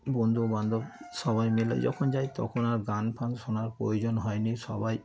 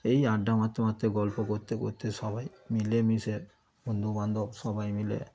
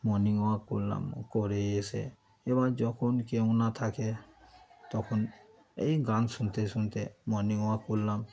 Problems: constant background noise, continuous background conversations